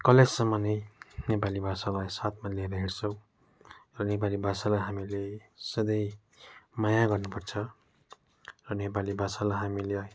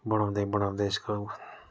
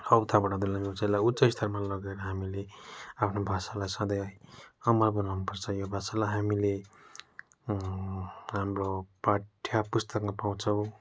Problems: none marked